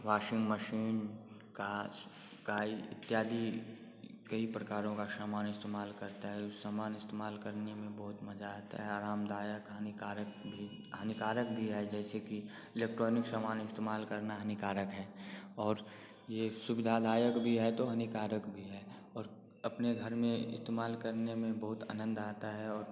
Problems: constant background noise